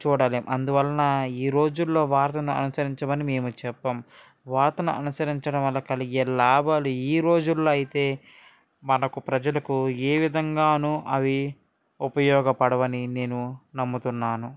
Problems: none marked